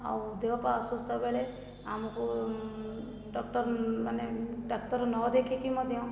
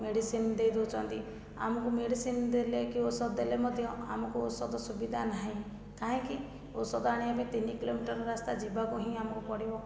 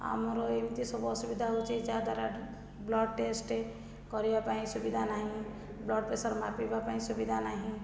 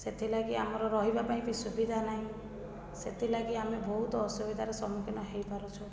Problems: low volume